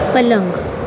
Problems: constant background noise, background conversations at intervals